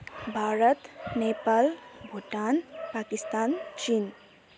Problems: background sounds at intervals